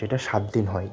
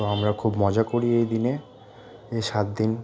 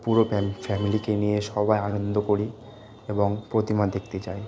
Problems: constant background noise